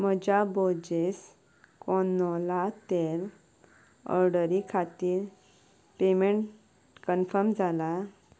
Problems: background sounds at intervals